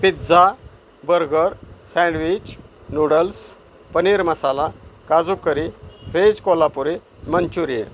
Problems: none marked